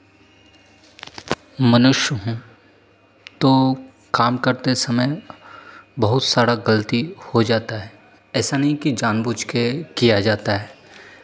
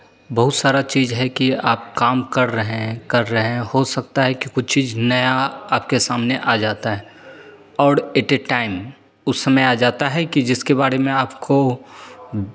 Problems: constant background noise, echo